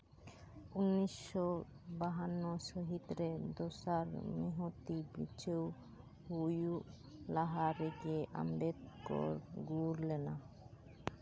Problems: background sounds at intervals